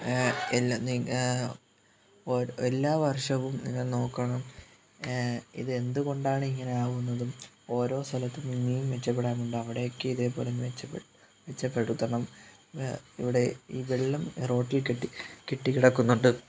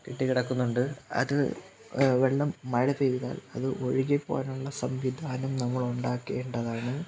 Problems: background sounds at intervals, low volume